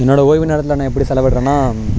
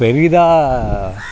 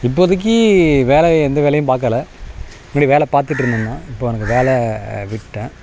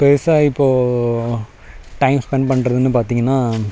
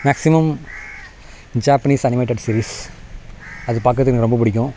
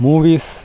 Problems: background sounds at intervals